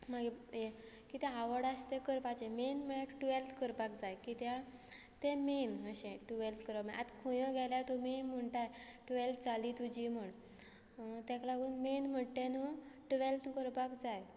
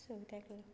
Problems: constant background noise